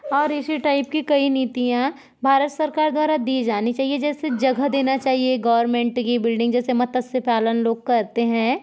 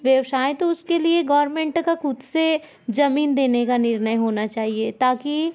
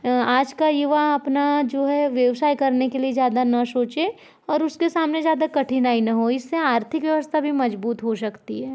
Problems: background sounds at intervals